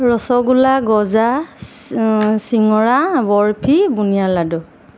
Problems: constant background noise